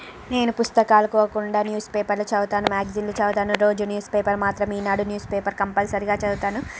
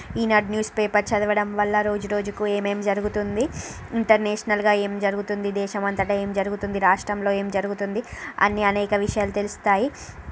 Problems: none marked